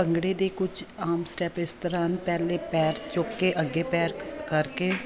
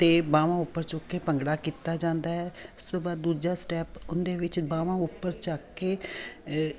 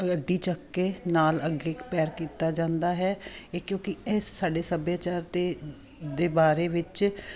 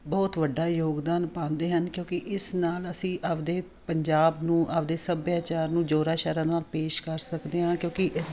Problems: none marked